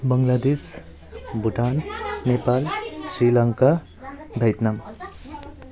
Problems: constant background noise